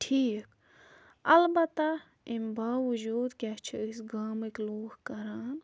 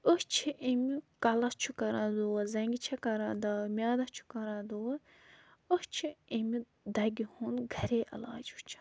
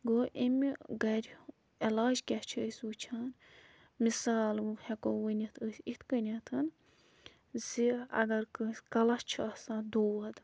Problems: background sounds at intervals